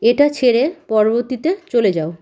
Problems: none marked